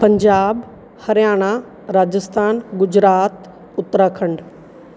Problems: background sounds at intervals